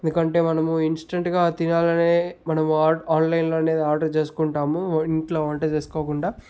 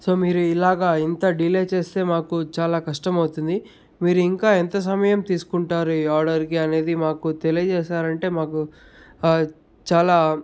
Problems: none marked